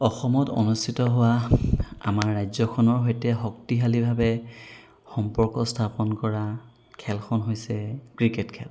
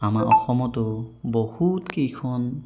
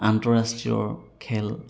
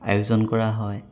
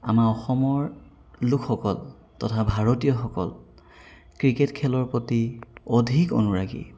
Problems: background sounds at intervals